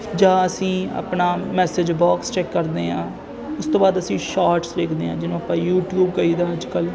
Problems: constant background noise